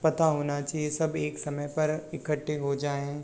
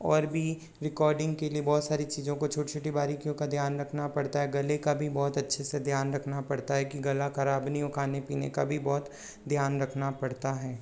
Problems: none marked